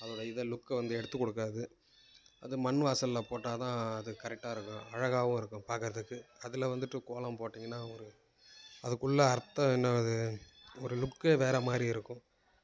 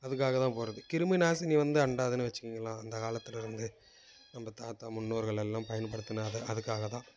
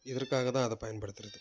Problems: none marked